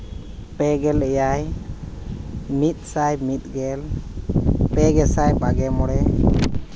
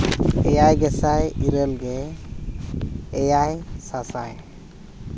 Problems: background sounds at intervals